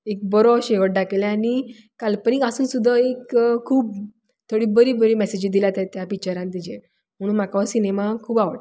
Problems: none marked